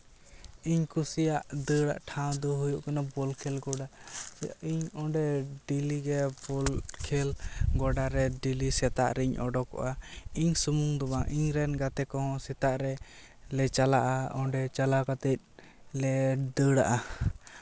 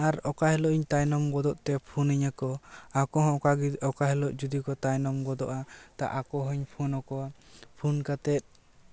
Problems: none marked